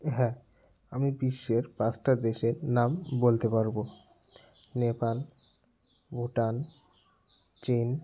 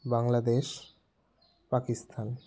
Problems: background sounds at intervals, background conversations at intervals